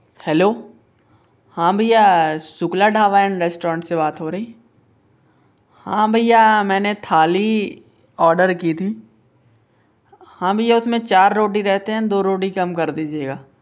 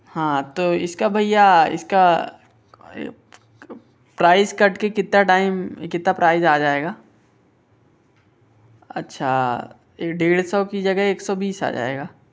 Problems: none marked